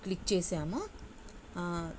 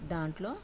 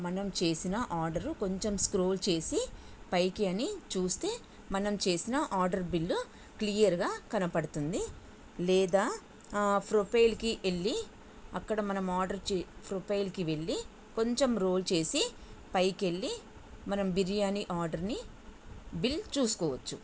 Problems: none marked